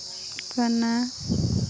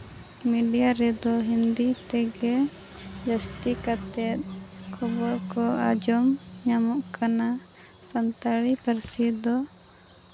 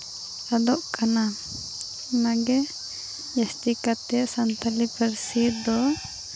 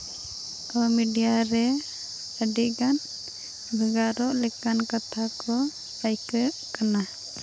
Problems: none marked